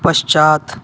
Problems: constant background noise